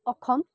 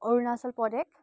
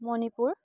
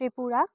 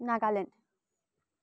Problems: none marked